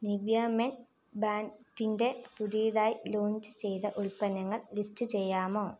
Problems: low volume